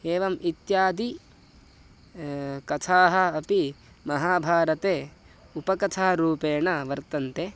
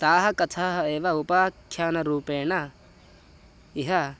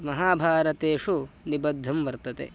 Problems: none marked